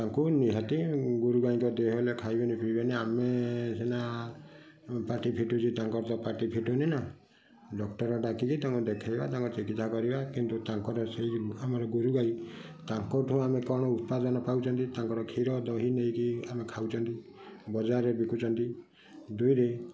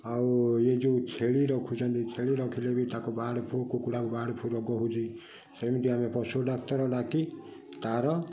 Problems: constant background noise